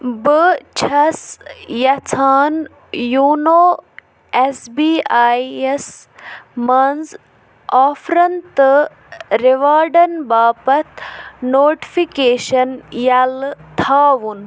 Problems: background sounds at intervals